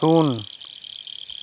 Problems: constant background noise